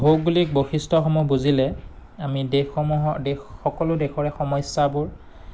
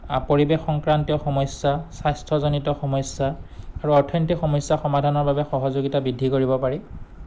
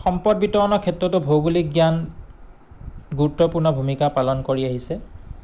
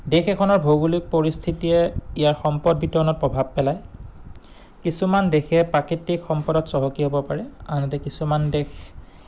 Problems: none marked